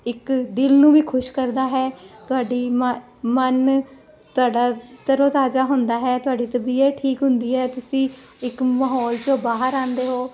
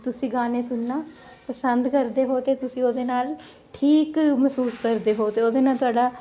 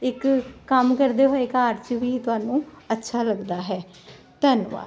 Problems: constant background noise